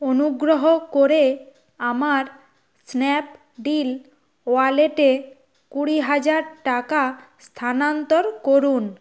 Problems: constant background noise